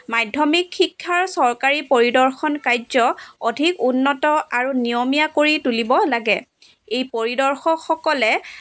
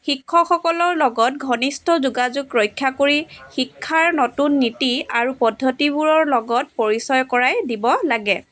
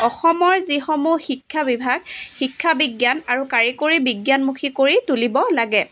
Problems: background sounds at intervals, background conversations at intervals